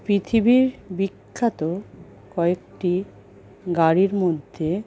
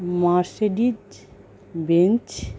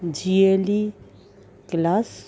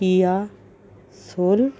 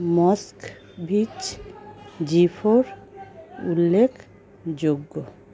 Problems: background conversations at intervals